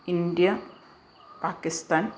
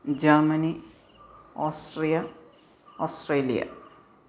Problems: background sounds at intervals